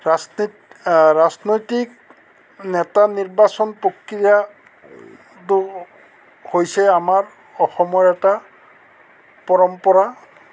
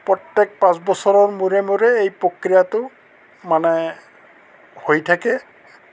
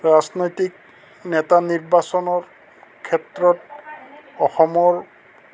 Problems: constant background noise, background conversations at intervals